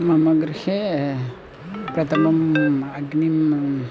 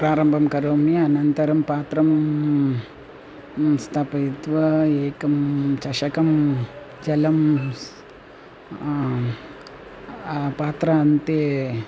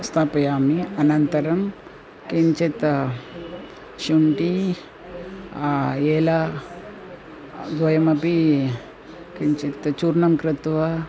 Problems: constant background noise, continuous background conversations